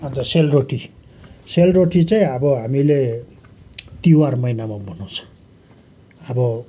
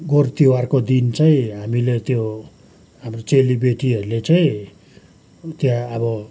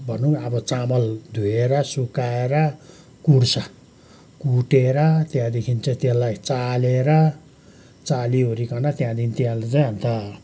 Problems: background sounds at intervals